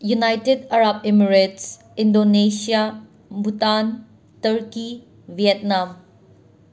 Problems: constant background noise